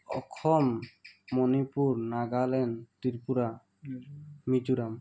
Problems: background sounds at intervals